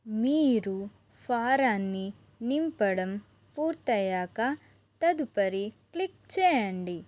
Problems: constant background noise